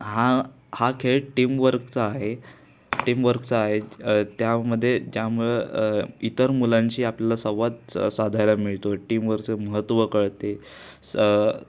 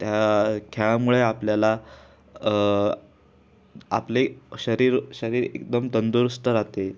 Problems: background sounds at intervals